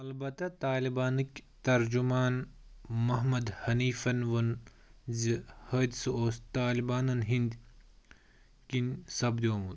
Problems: background sounds at intervals